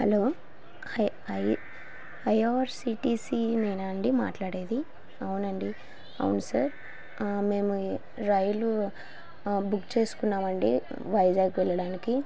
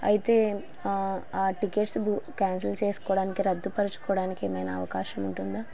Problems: constant background noise